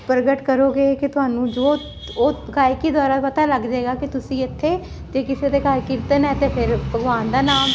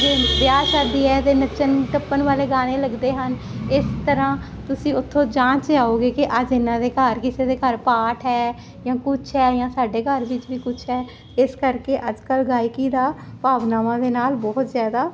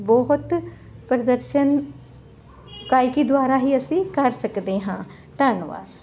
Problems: none marked